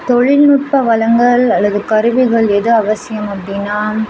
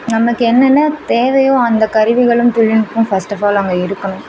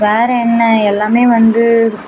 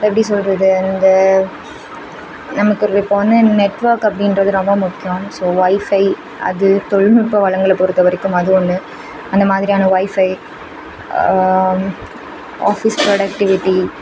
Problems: background sounds at intervals